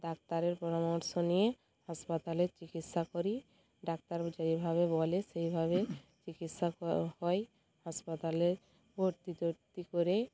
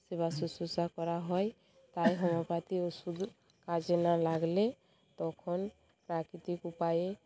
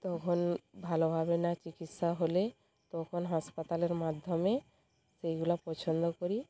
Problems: constant background noise, background conversations at intervals